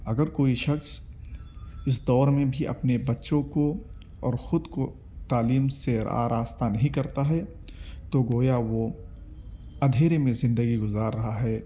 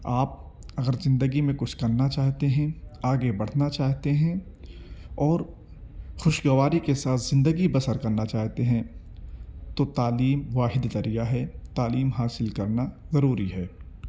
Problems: background conversations at intervals